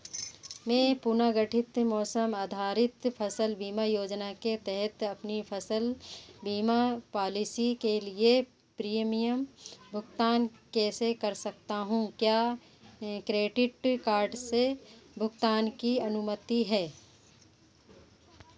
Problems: none marked